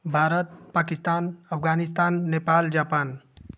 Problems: none marked